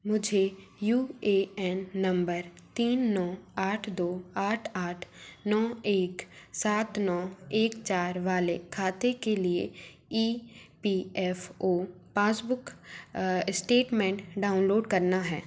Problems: none marked